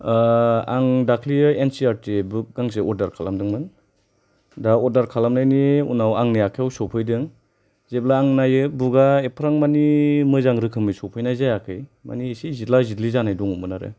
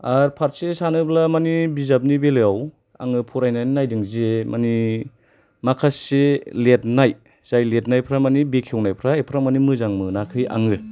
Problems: none marked